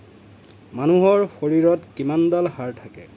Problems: none marked